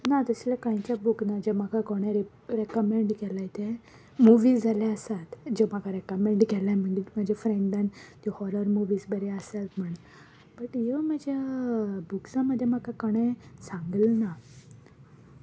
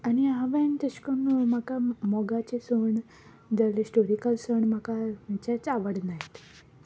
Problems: background sounds at intervals